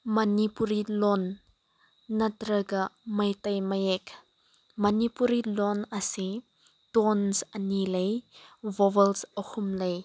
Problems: background sounds at intervals